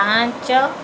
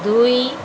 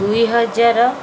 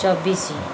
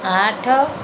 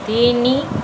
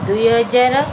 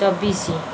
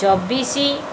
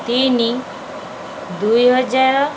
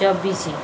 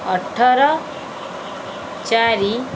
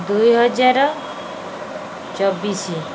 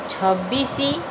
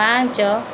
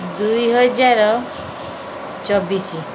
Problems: none marked